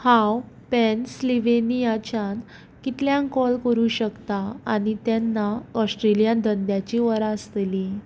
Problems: none marked